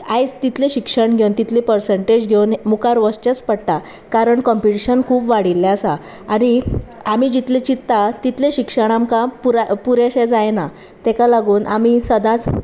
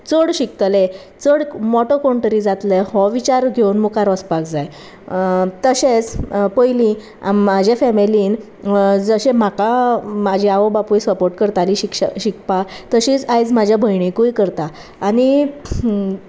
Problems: constant background noise